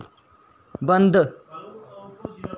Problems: none marked